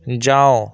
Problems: constant background noise